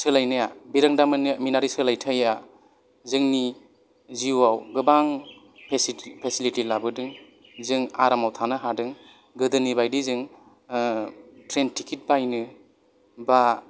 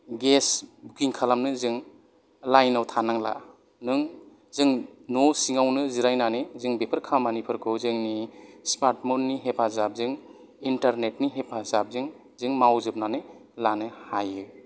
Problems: background sounds at intervals